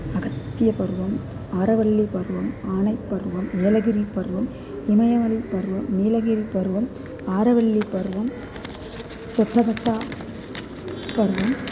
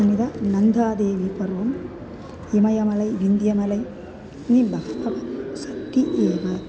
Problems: constant background noise